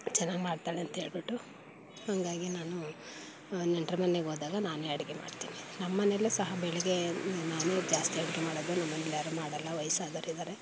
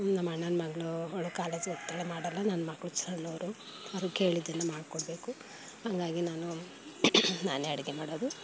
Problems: background sounds at intervals